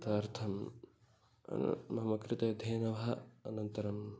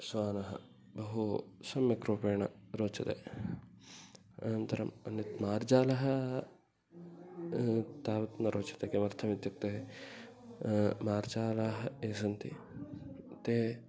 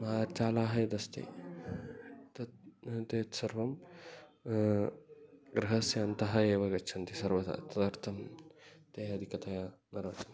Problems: background sounds at intervals, background conversations at intervals, low volume